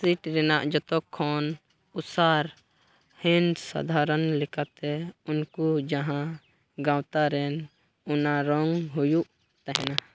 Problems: none marked